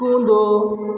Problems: none marked